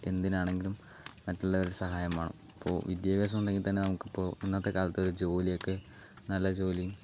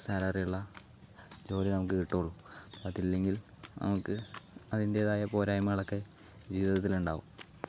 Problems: background sounds at intervals, low volume